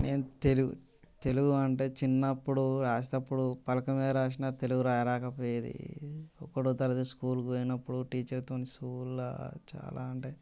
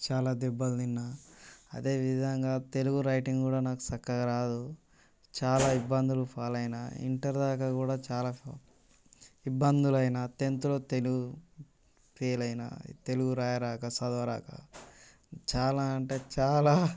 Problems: constant background noise